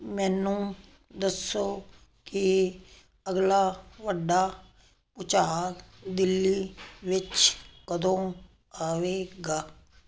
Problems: none marked